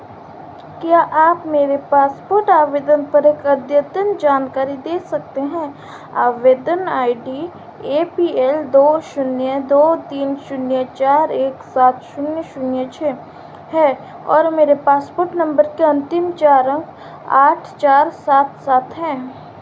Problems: constant background noise